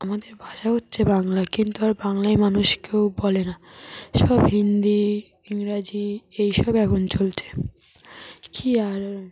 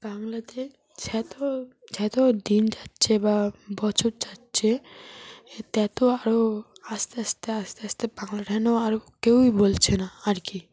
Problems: background sounds at intervals